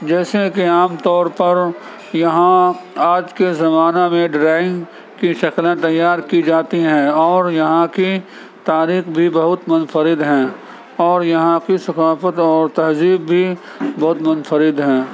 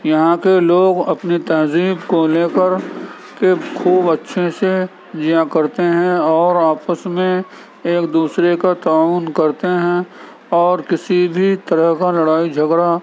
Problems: constant background noise, background conversations at intervals